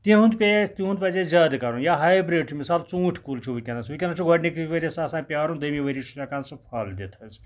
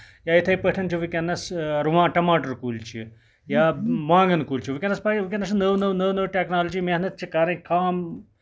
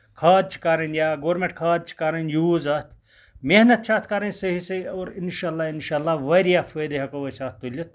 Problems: none marked